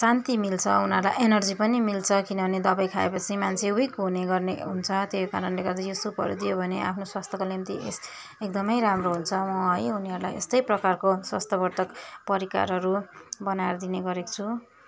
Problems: none marked